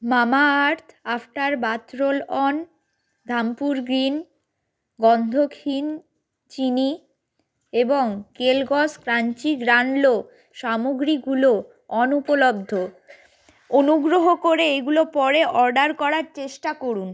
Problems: background sounds at intervals